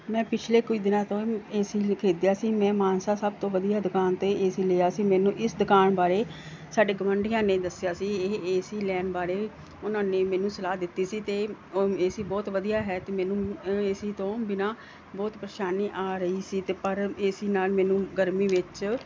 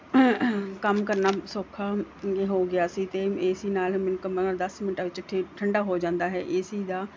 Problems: none marked